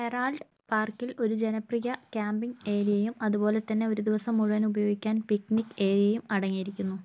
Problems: none marked